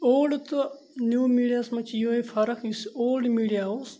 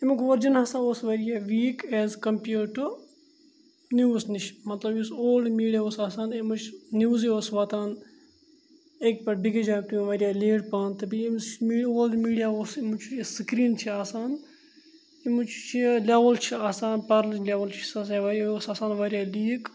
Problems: none marked